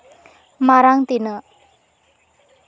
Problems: none marked